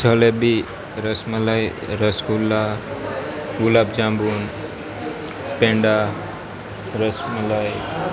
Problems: constant background noise